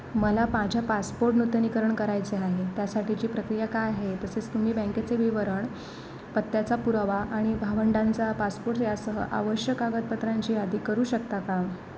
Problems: none marked